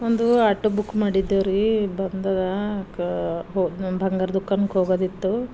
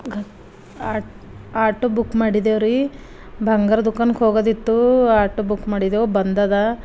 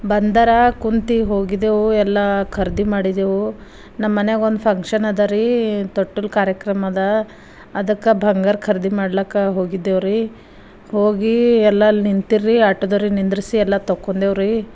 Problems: none marked